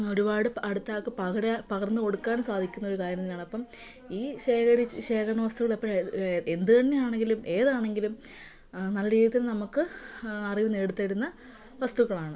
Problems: none marked